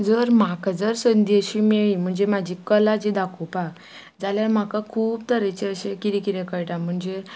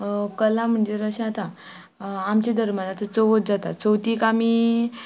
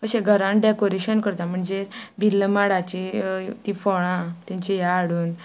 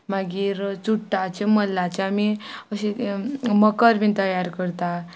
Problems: constant background noise